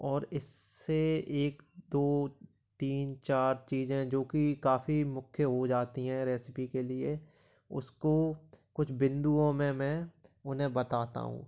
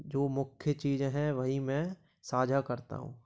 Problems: background sounds at intervals